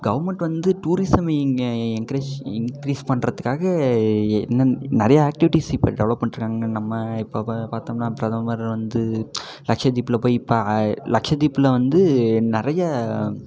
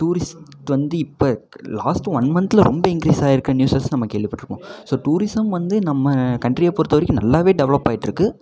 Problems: background conversations at intervals